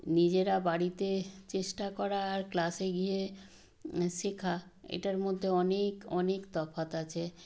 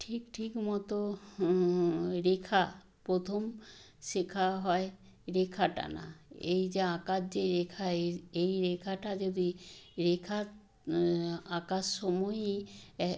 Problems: none marked